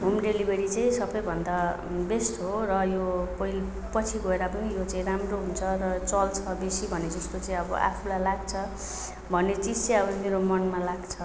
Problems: none marked